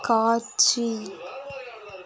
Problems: background conversations at intervals